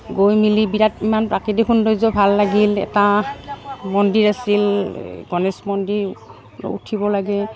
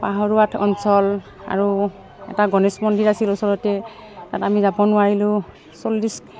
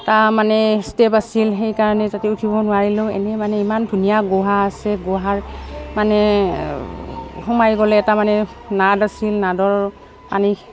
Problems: background sounds at intervals